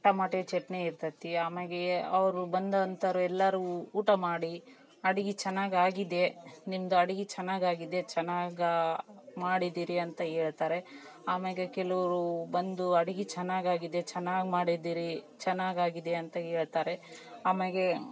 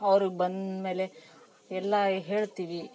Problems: none marked